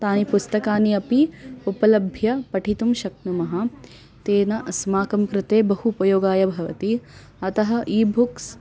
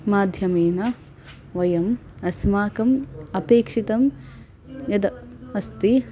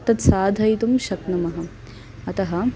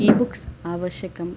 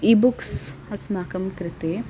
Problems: none marked